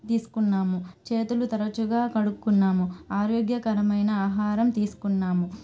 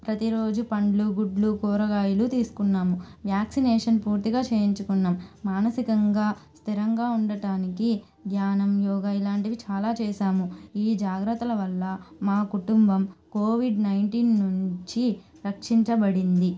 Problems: constant background noise